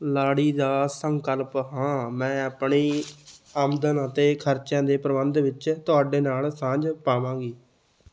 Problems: background sounds at intervals